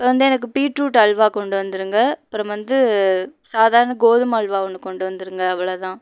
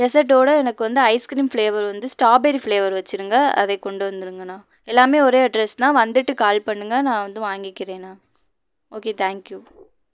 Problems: none marked